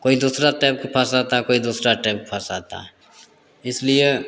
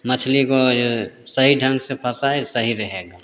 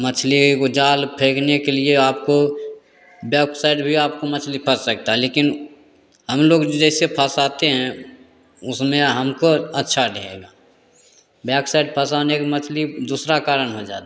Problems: constant background noise, echo